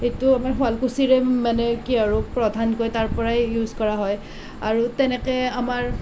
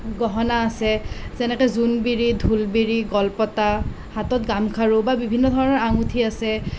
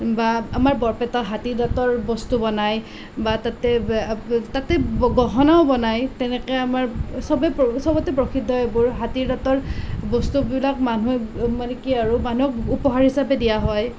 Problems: constant background noise